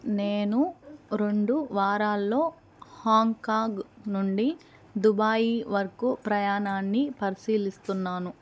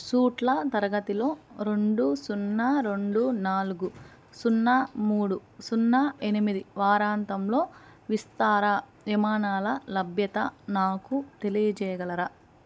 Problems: none marked